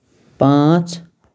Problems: none marked